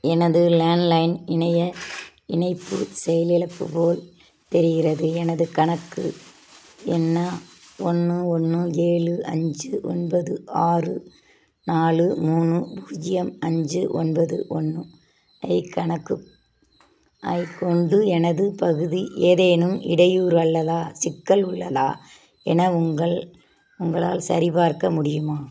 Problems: constant background noise